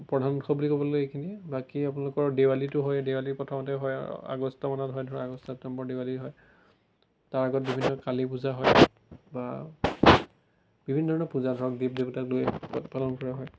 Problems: none marked